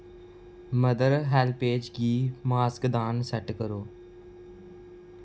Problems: constant background noise